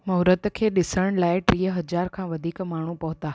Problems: none marked